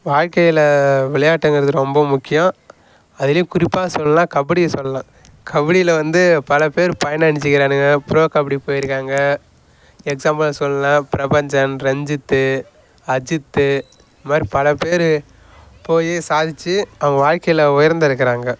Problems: none marked